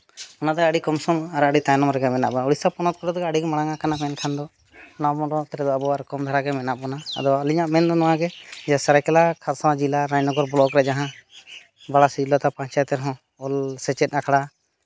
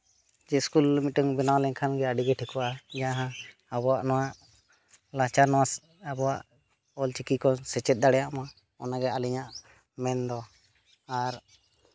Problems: none marked